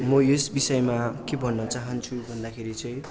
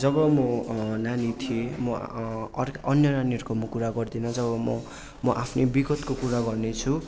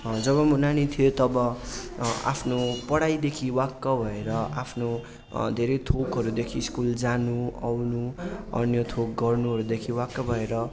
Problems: constant background noise